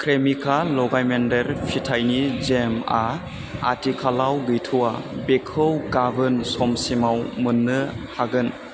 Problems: none marked